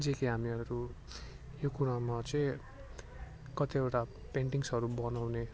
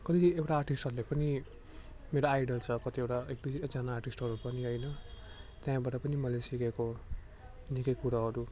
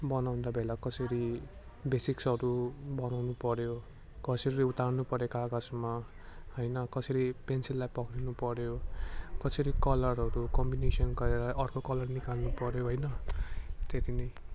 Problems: none marked